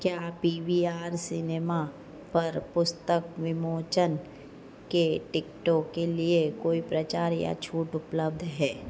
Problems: low volume